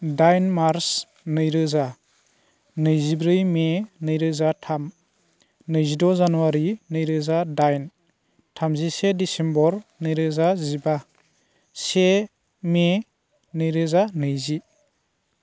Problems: constant background noise